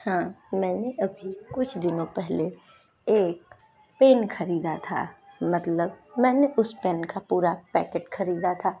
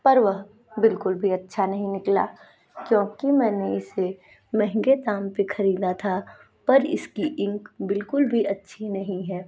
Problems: background sounds at intervals